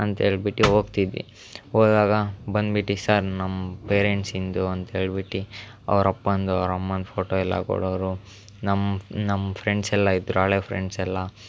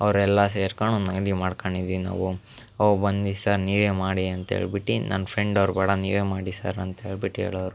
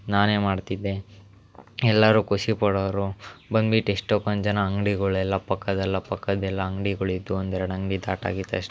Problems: none marked